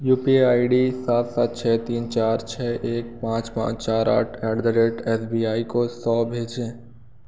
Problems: none marked